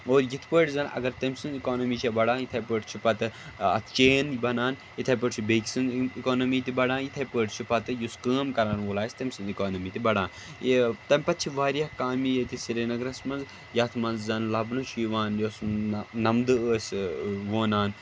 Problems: constant background noise